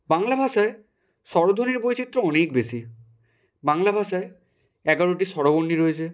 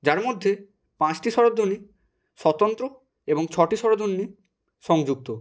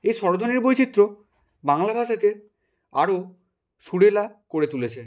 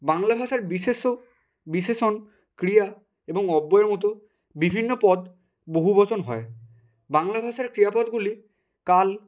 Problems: background sounds at intervals